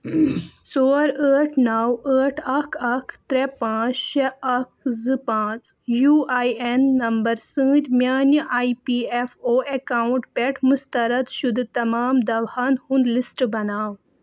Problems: none marked